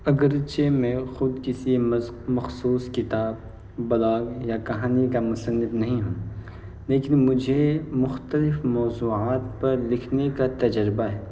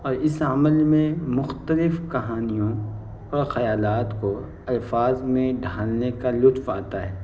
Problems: constant background noise